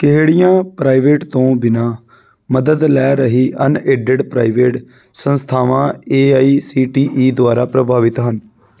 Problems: background sounds at intervals